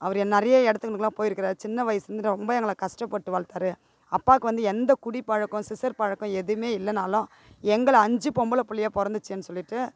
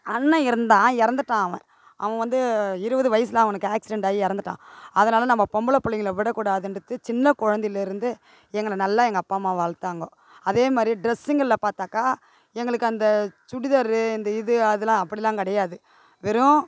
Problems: background sounds at intervals